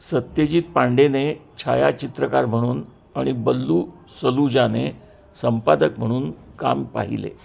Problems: constant background noise, continuous background conversations